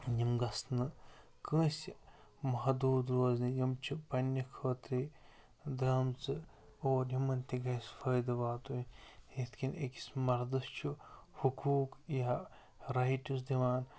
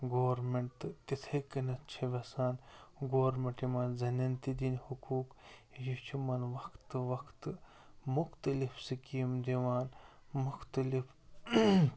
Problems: constant background noise, low volume